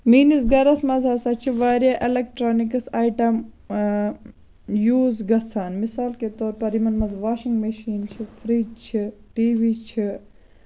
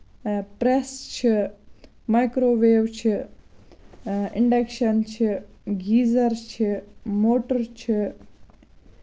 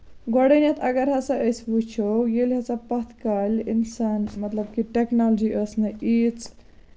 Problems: none marked